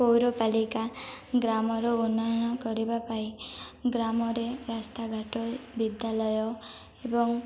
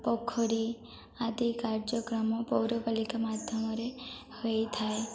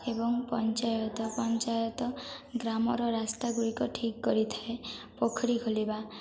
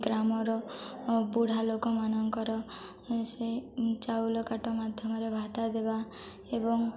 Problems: none marked